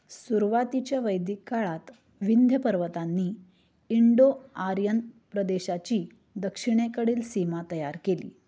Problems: none marked